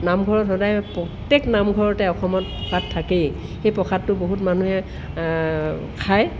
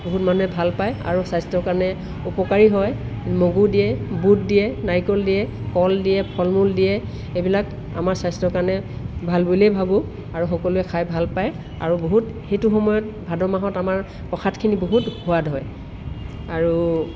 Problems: none marked